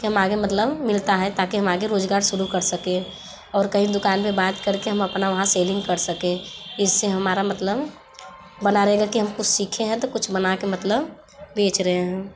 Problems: background sounds at intervals, background conversations at intervals